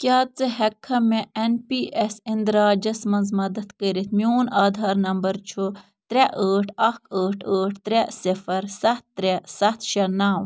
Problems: none marked